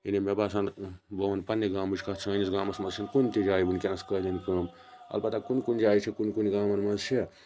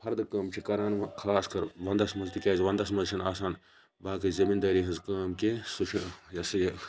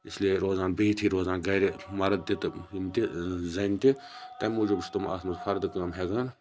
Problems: background sounds at intervals, continuous background conversations